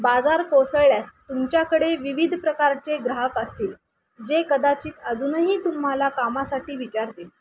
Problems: constant background noise